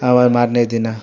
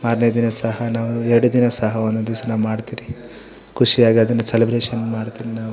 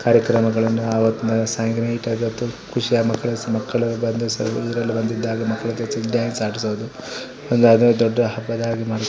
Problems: background conversations at intervals